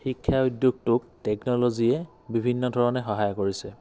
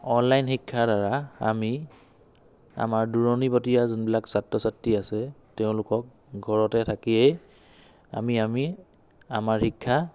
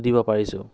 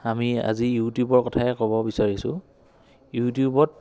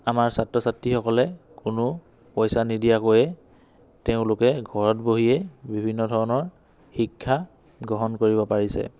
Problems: background conversations at intervals